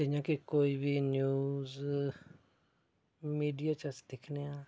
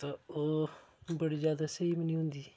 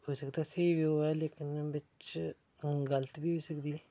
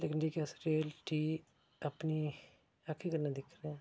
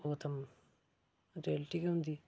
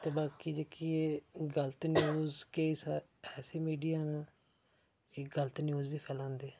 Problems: background sounds at intervals, low volume